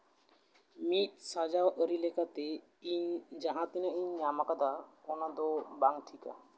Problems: constant background noise